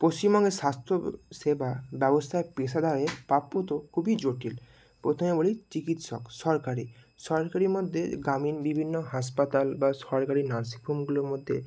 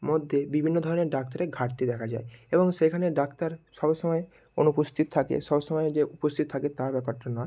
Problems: none marked